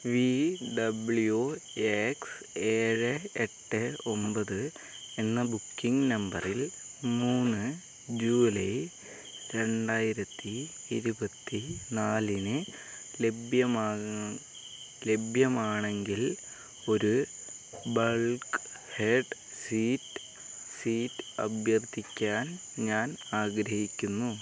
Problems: background sounds at intervals